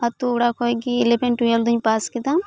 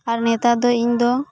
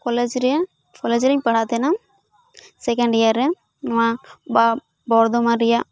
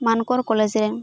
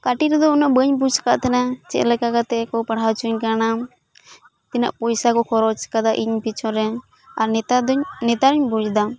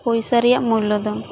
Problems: background conversations at intervals